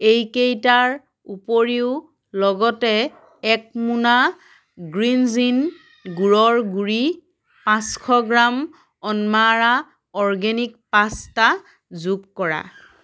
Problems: background sounds at intervals, background conversations at intervals